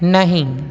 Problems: constant background noise